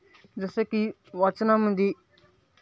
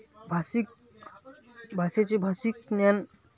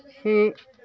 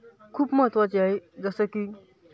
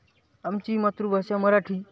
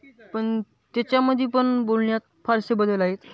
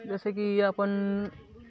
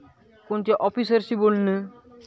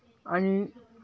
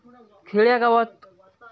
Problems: none marked